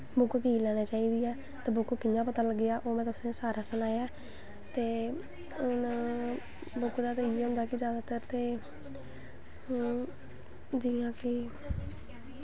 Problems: none marked